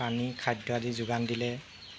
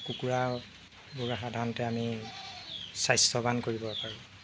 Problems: constant background noise